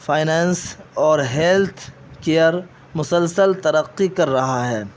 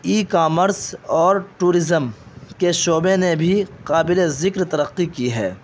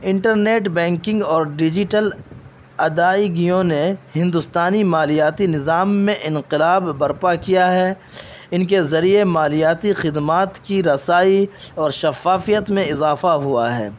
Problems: constant background noise